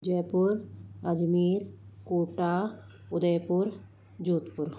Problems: constant background noise